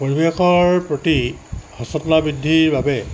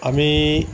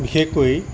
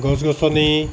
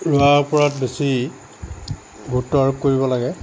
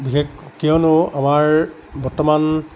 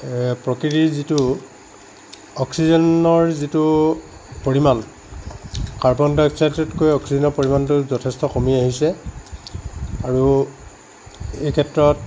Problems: constant background noise